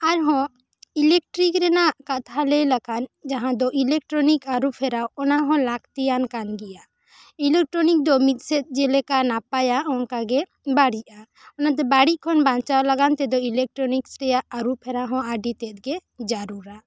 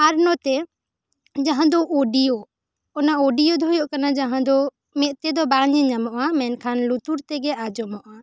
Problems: none marked